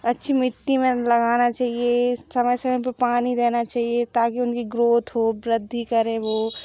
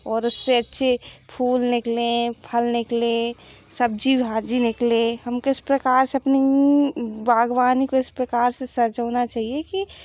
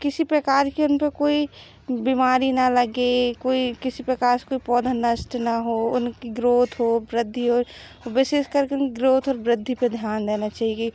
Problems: background sounds at intervals